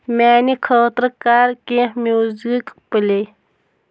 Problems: background sounds at intervals